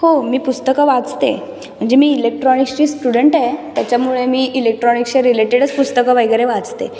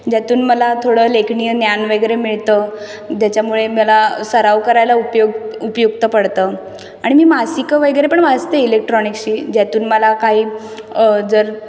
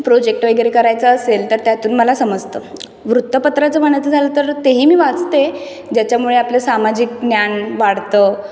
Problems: background sounds at intervals